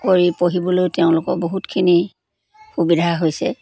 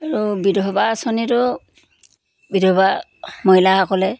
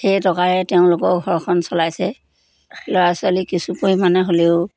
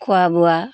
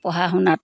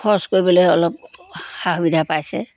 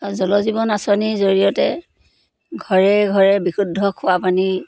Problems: constant background noise